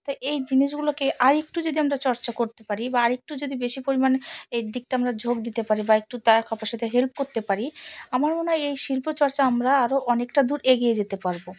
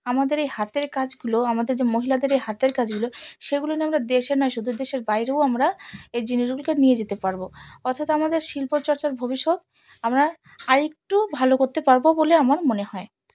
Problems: none marked